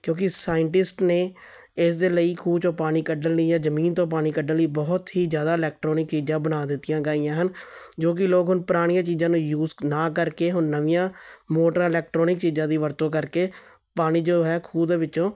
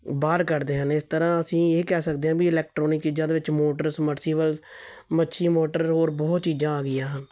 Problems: none marked